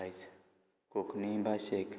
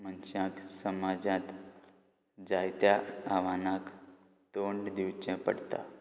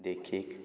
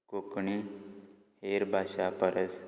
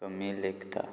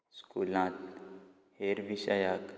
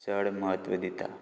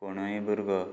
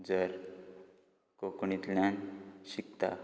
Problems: background sounds at intervals